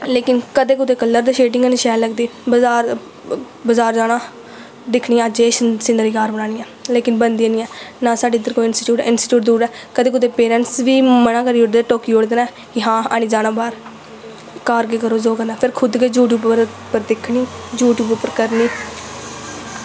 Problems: constant background noise